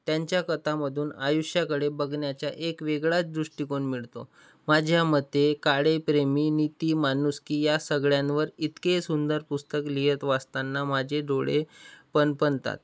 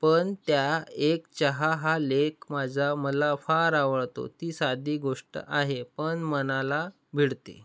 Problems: constant background noise